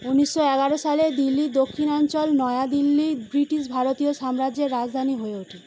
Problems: constant background noise